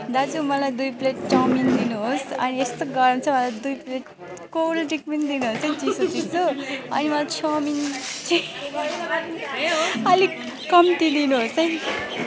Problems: constant background noise